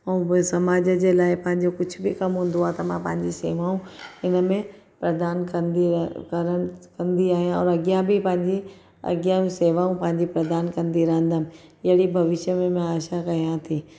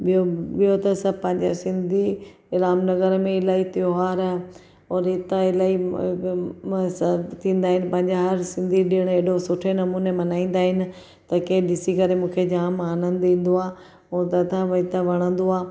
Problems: none marked